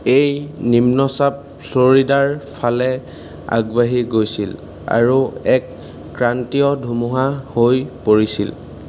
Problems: constant background noise